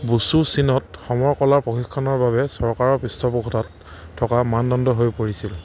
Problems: none marked